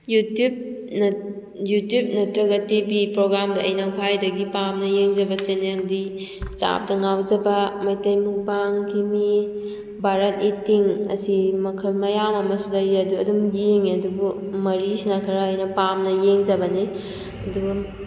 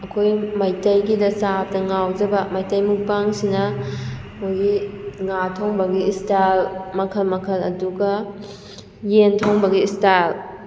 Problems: background sounds at intervals